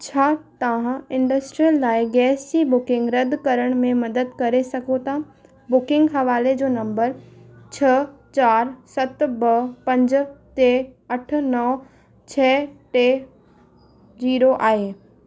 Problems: constant background noise, echo